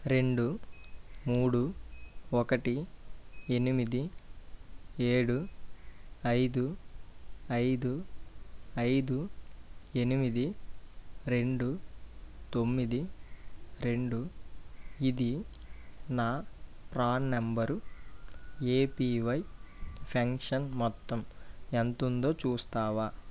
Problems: low volume